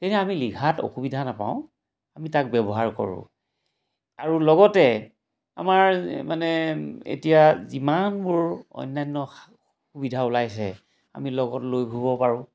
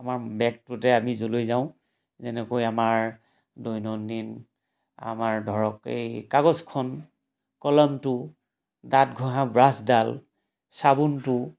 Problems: background sounds at intervals